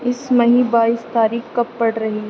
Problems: constant background noise